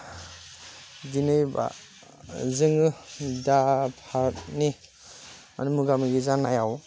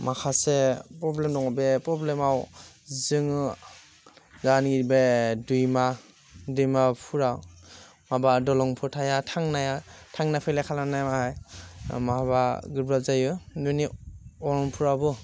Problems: constant background noise